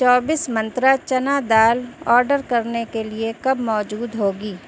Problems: none marked